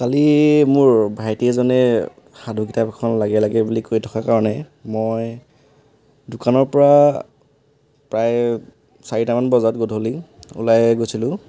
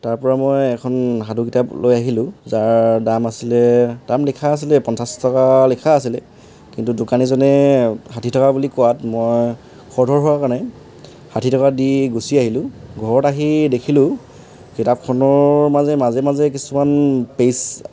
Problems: none marked